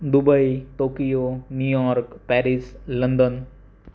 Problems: none marked